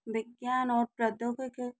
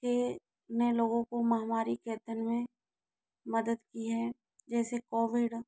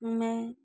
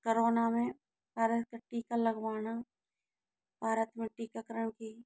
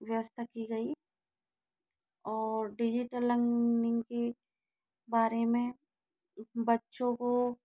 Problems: low volume